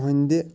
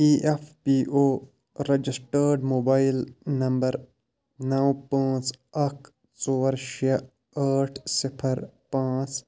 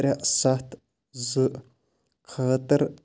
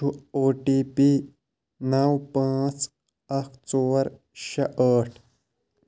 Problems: none marked